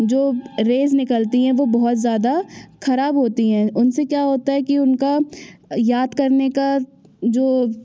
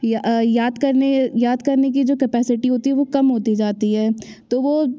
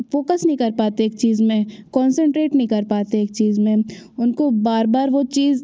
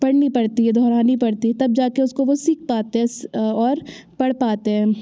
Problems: background sounds at intervals